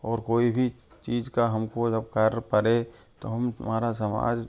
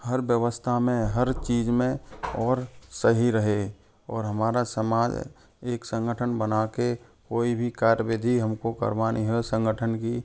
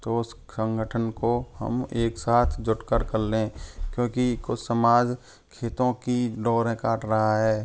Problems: constant background noise, continuous background conversations